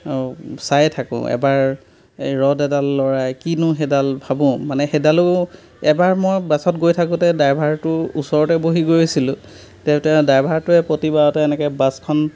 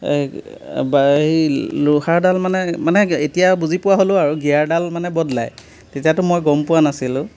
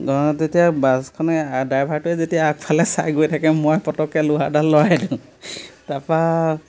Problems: background sounds at intervals